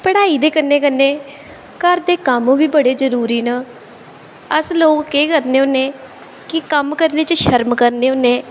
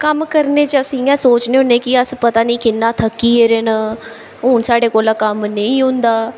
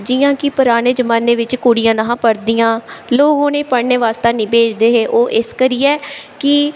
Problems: constant background noise, background conversations at intervals, echo